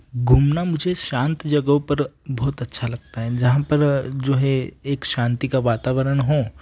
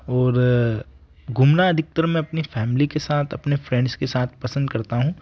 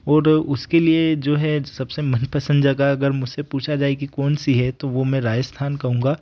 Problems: none marked